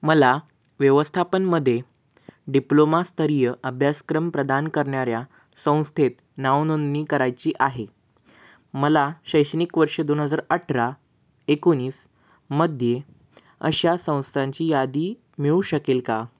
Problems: background sounds at intervals